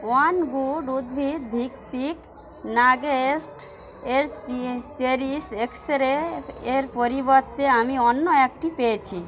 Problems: constant background noise